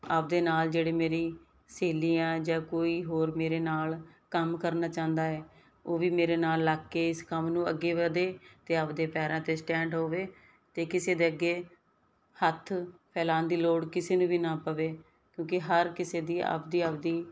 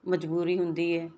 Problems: background sounds at intervals